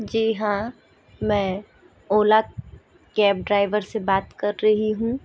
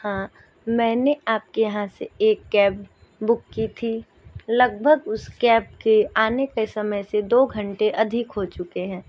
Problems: background sounds at intervals